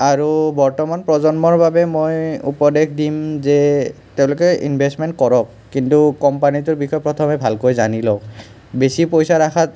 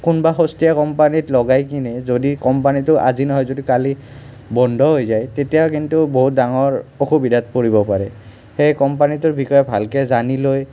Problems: none marked